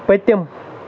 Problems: constant background noise